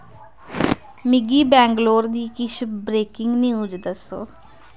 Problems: none marked